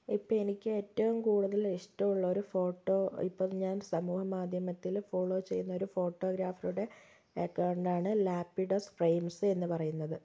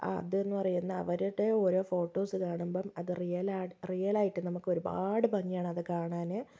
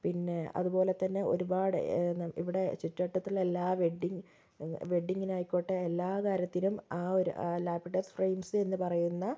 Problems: low volume